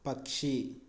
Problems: low volume